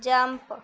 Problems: none marked